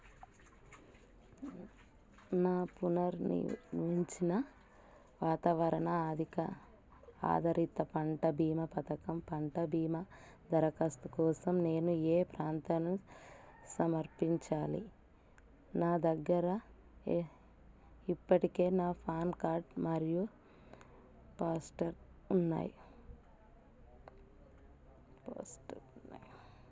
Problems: low volume